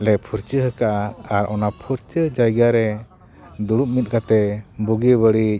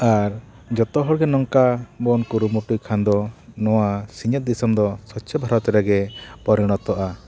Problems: constant background noise